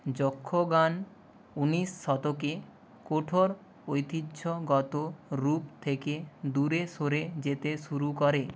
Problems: none marked